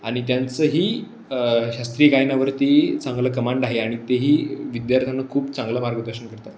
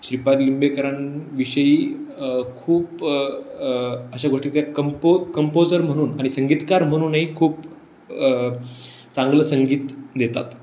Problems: none marked